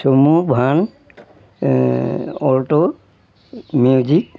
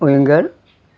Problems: background sounds at intervals